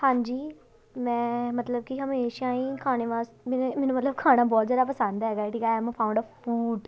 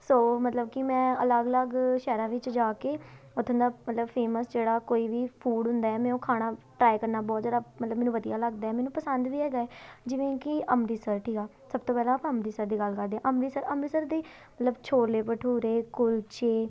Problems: background sounds at intervals